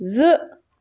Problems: background sounds at intervals